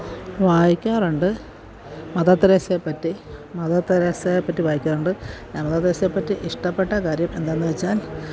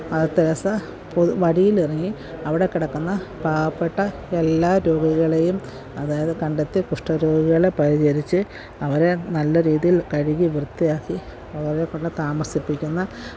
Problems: background sounds at intervals